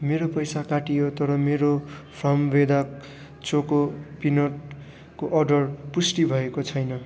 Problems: none marked